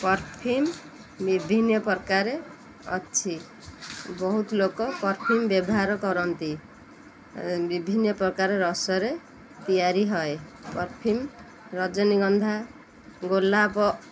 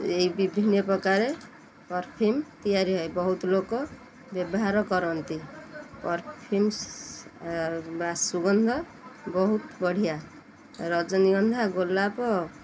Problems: constant background noise